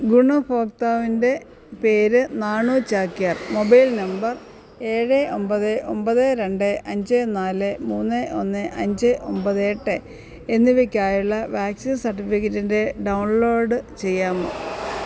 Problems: background sounds at intervals